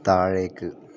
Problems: low volume